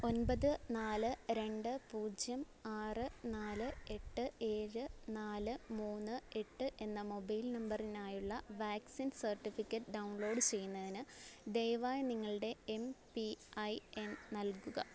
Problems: background sounds at intervals